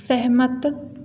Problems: constant background noise, echo